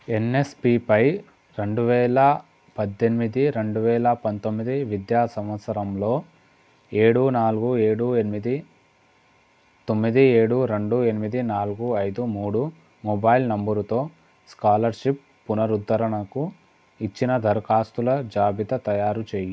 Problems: none marked